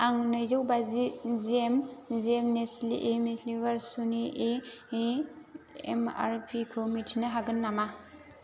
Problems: low volume